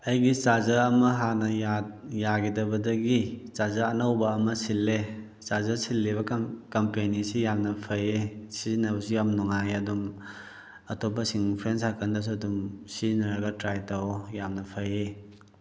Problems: none marked